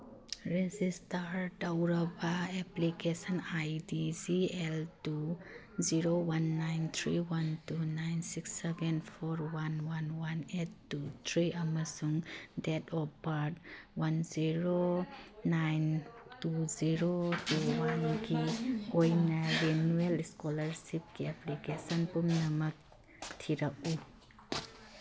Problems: background sounds at intervals